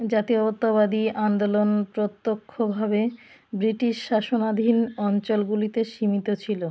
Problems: background sounds at intervals